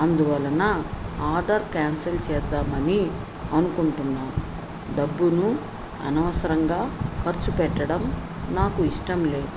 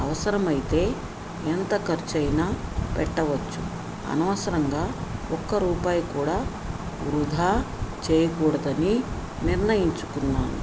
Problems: constant background noise